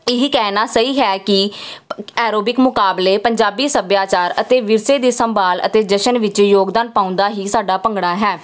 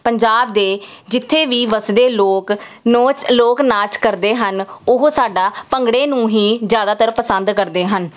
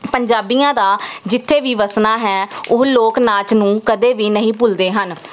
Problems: none marked